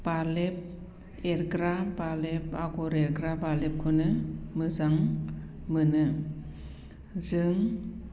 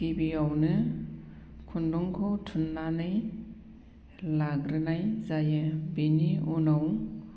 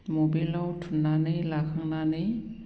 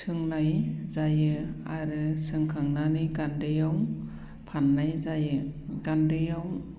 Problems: low volume